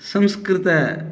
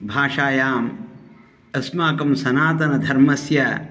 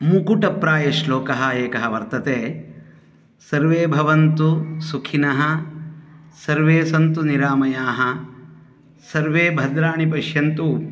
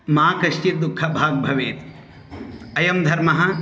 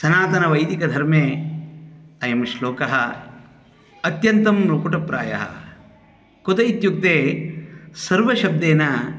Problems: continuous background conversations